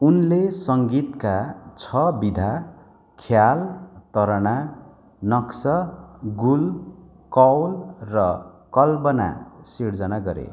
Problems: constant background noise